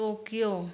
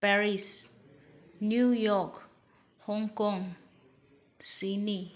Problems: none marked